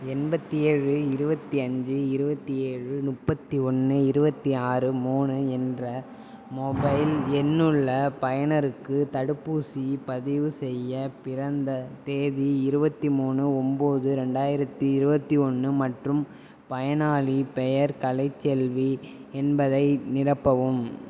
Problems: constant background noise